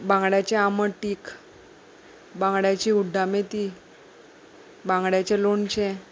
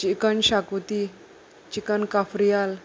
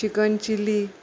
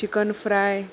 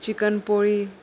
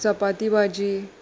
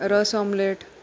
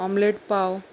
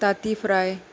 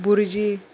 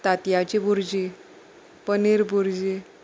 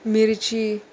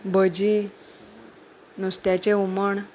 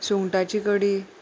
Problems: none marked